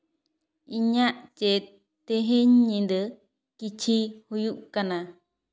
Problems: echo